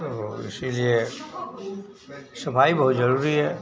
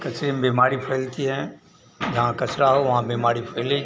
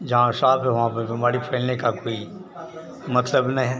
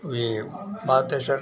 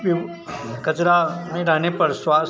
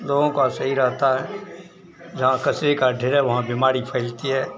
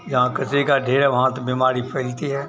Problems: constant background noise